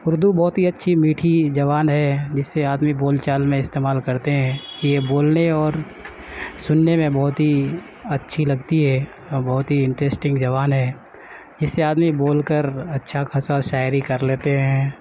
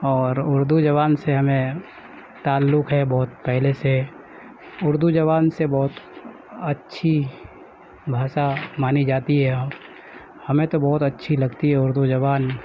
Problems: constant background noise, background conversations at intervals, low volume